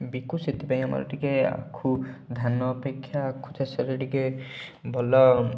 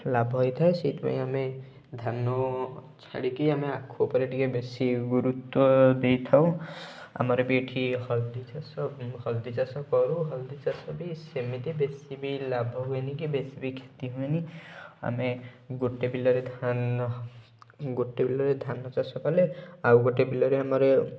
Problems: background sounds at intervals